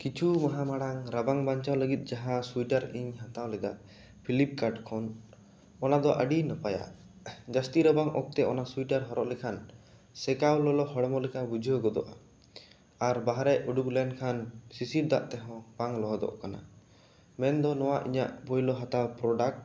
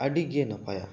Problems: echo